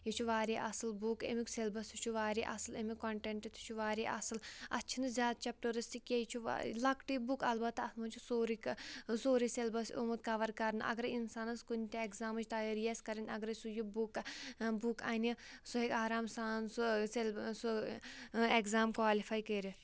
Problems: background sounds at intervals